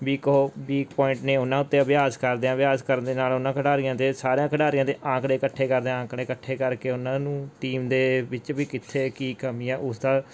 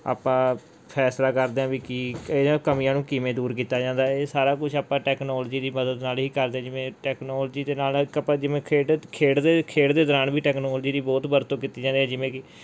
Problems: background sounds at intervals